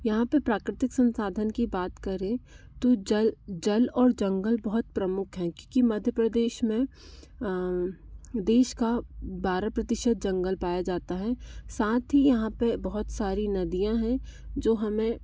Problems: constant background noise